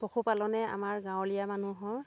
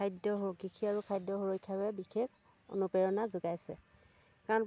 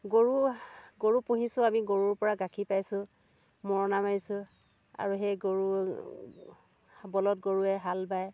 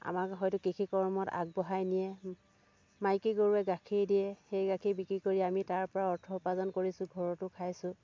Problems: none marked